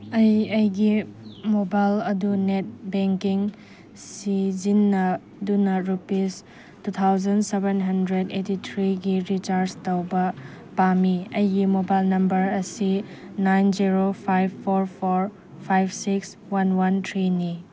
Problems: none marked